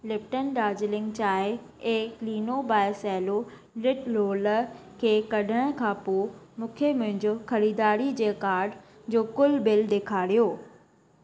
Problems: constant background noise